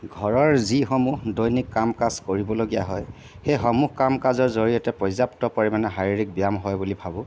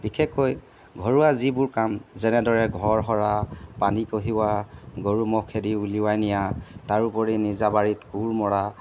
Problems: background sounds at intervals